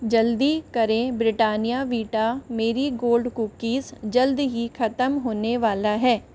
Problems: constant background noise